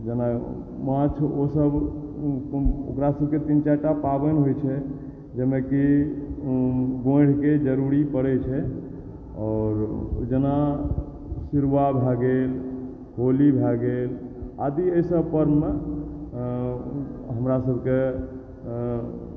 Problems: background sounds at intervals, low volume